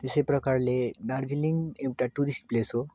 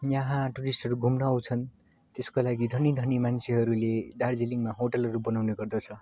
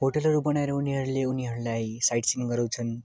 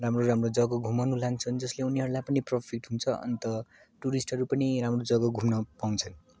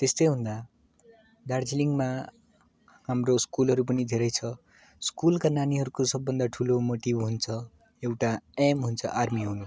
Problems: none marked